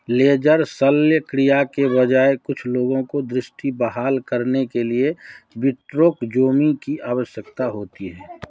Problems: background sounds at intervals, background conversations at intervals